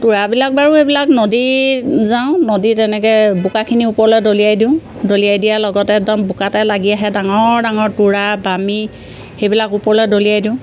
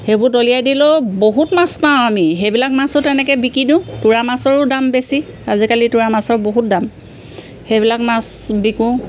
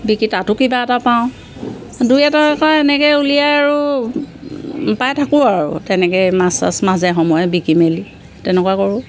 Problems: background sounds at intervals